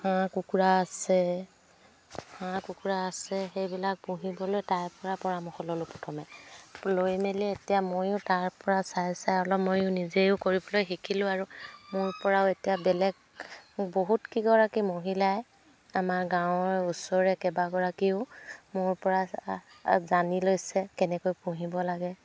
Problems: background sounds at intervals